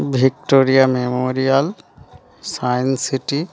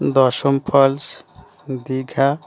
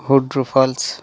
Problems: background conversations at intervals